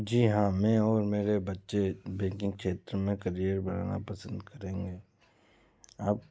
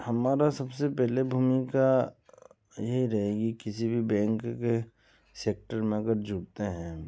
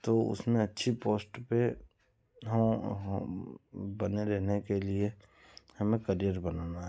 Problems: background sounds at intervals